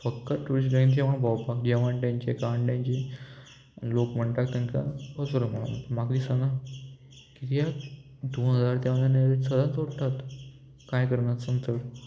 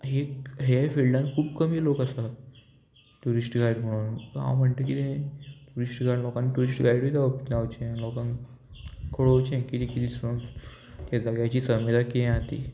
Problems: constant background noise